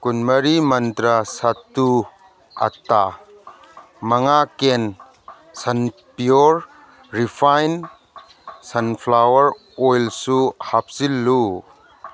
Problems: background conversations at intervals